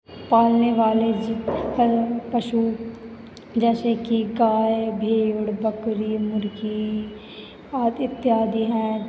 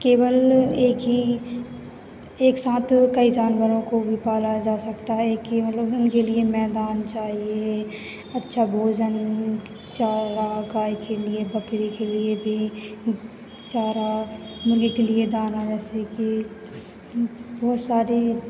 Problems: none marked